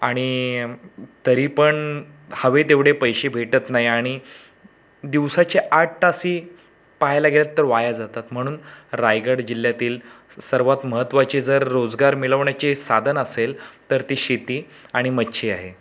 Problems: background sounds at intervals